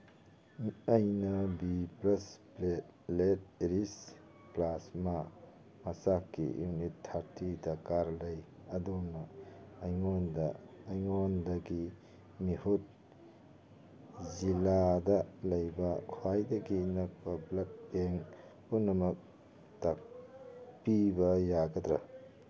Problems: background sounds at intervals, background conversations at intervals